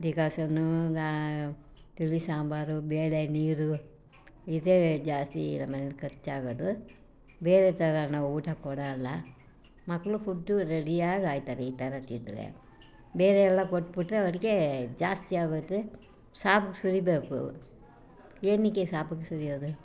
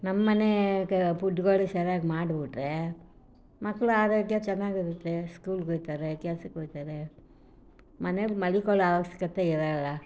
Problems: none marked